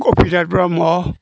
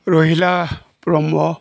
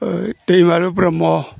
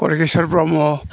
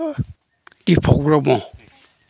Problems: none marked